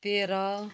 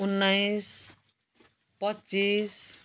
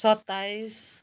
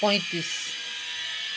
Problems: constant background noise